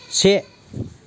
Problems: constant background noise